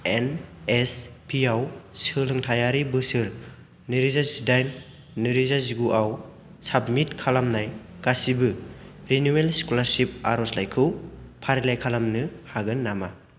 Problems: constant background noise